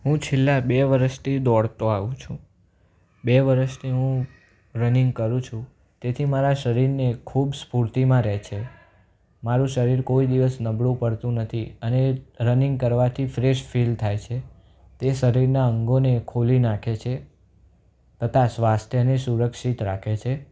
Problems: none marked